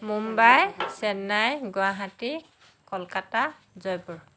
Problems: none marked